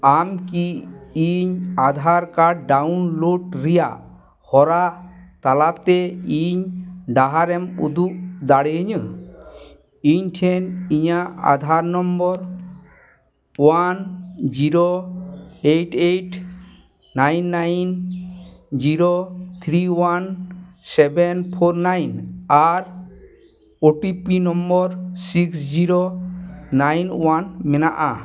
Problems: background conversations at intervals